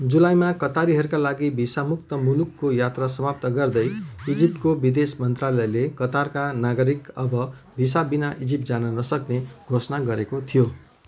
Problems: continuous background conversations